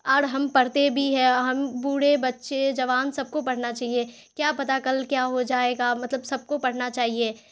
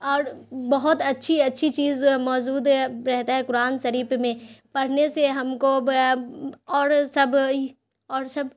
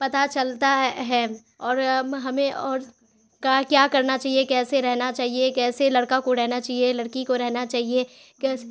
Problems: constant background noise